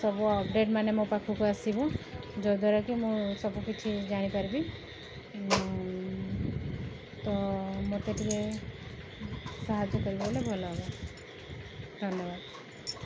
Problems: background sounds at intervals